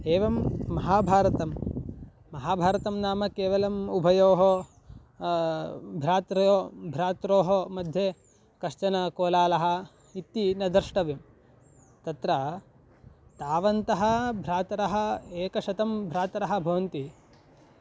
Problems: none marked